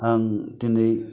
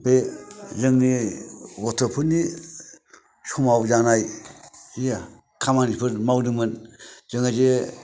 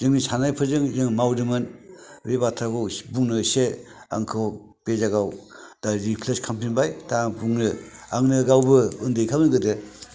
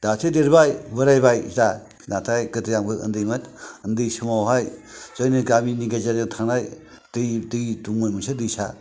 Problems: none marked